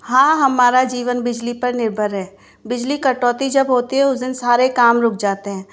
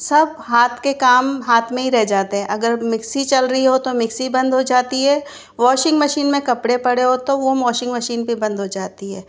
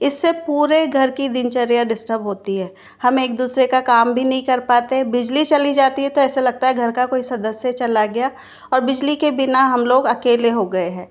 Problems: constant background noise